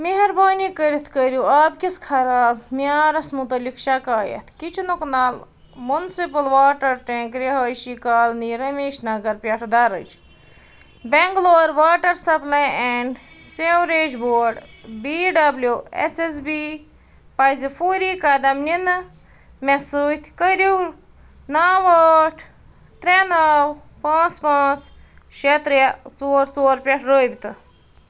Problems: none marked